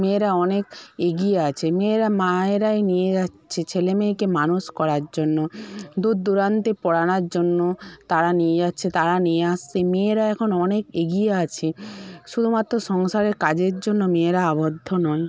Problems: none marked